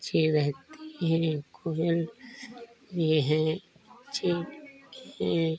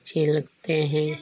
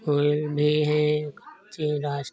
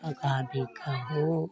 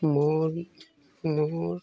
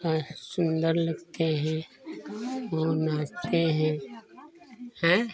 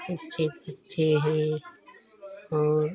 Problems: background sounds at intervals